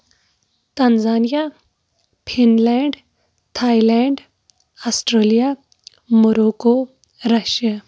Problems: background sounds at intervals